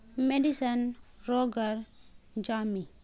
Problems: constant background noise